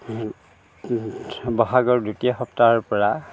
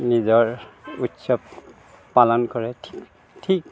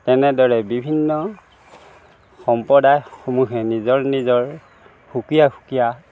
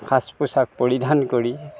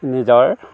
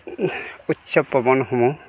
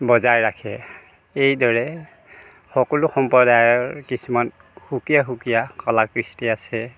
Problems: constant background noise